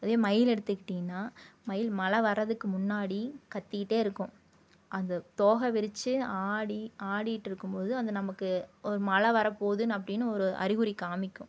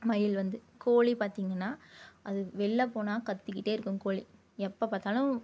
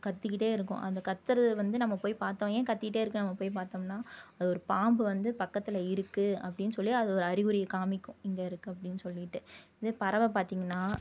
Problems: low volume